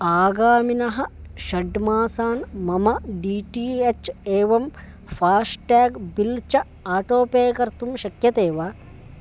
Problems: constant background noise